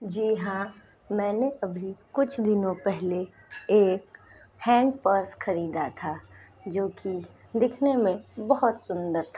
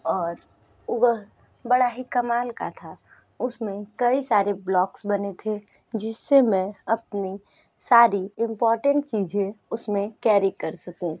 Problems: background sounds at intervals, background conversations at intervals